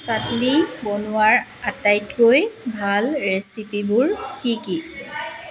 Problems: constant background noise, background conversations at intervals